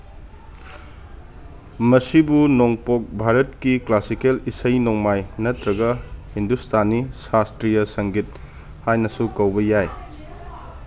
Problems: none marked